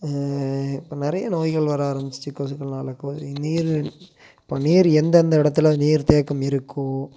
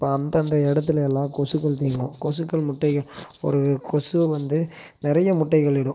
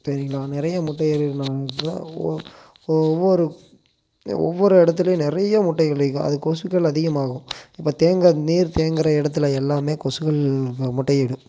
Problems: constant background noise